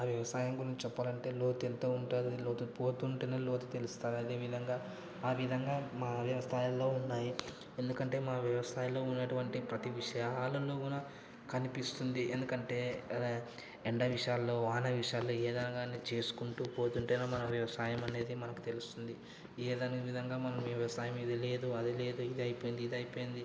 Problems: none marked